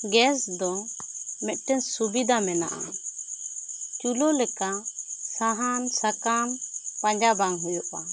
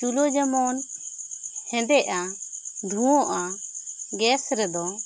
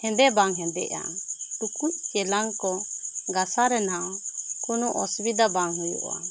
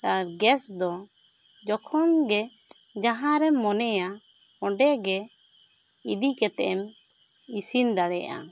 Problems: constant background noise